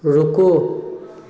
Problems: none marked